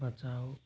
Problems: constant background noise, low volume